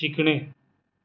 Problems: constant background noise